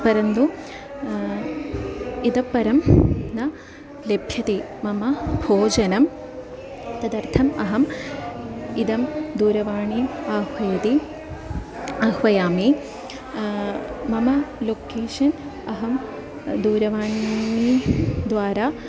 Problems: background sounds at intervals